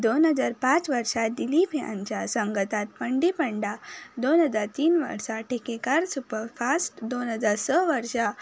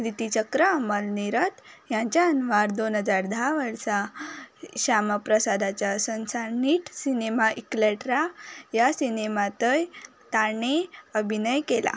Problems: constant background noise